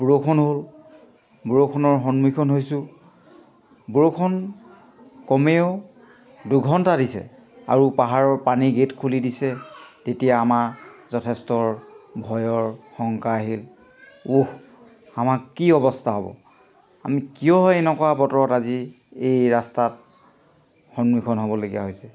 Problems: background conversations at intervals